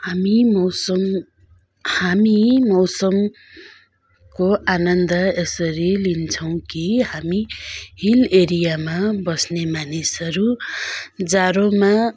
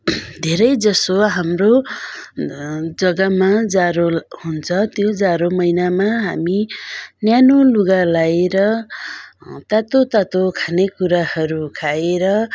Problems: continuous background conversations